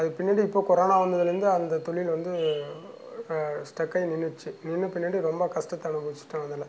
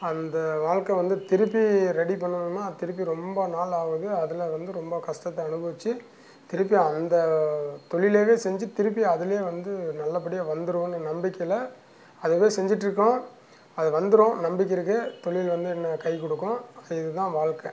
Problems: none marked